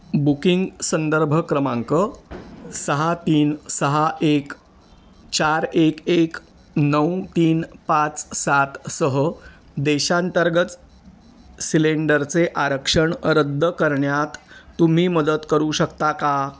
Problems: constant background noise